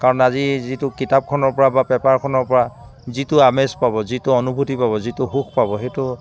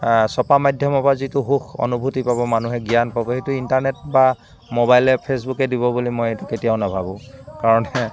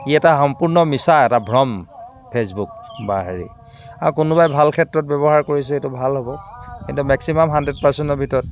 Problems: constant background noise, background conversations at intervals